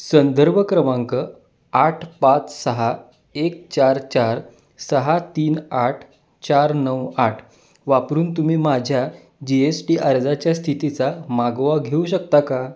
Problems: none marked